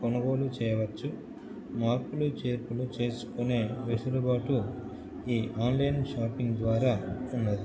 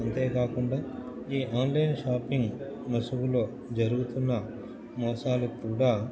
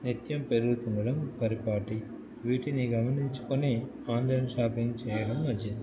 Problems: constant background noise